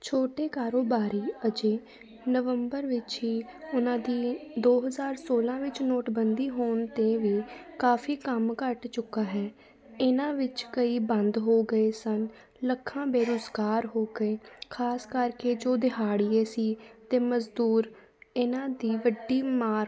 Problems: background sounds at intervals, continuous background conversations